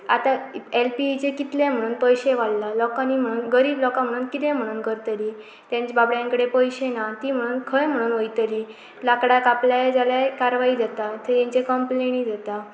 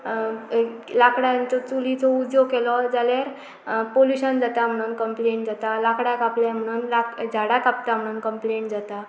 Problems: background sounds at intervals